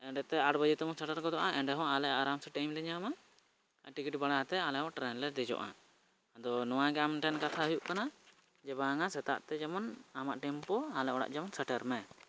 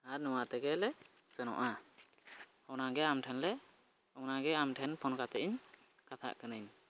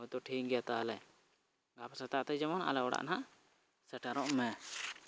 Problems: none marked